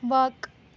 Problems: background sounds at intervals